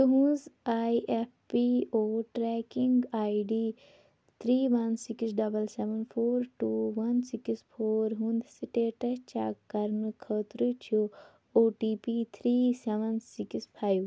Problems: constant background noise